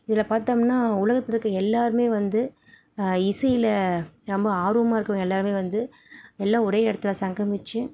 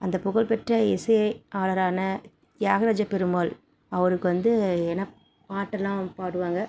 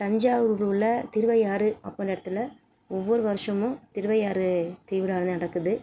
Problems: none marked